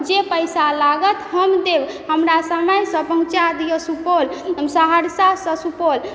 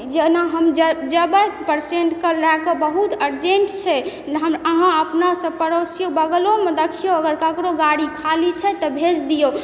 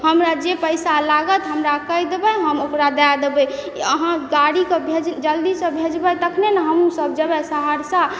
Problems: background sounds at intervals